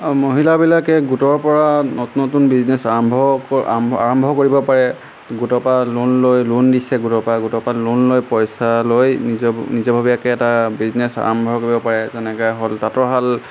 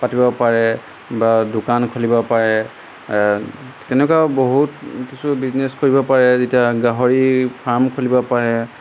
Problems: none marked